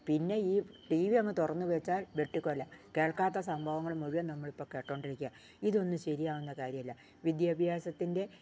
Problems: none marked